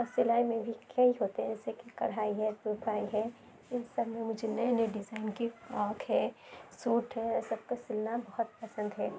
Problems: constant background noise, low volume